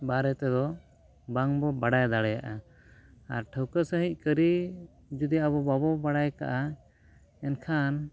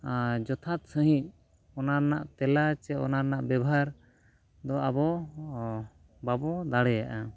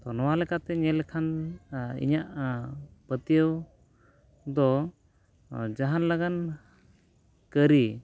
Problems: background conversations at intervals